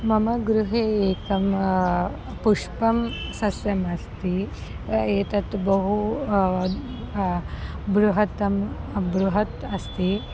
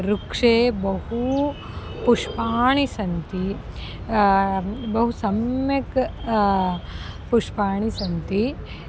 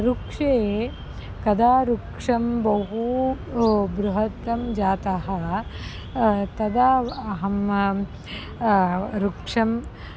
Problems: constant background noise